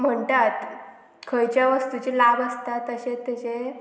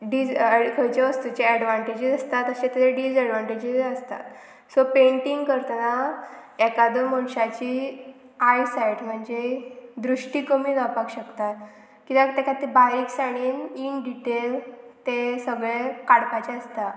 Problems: none marked